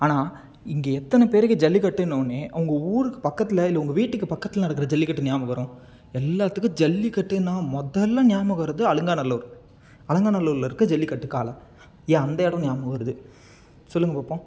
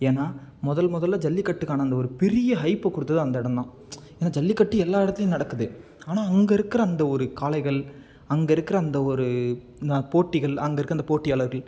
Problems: none marked